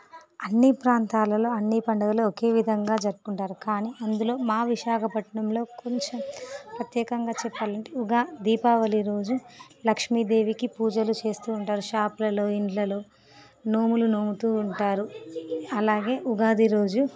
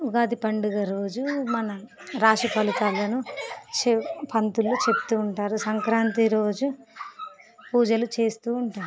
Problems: background sounds at intervals